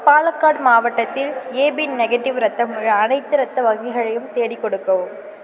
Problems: background sounds at intervals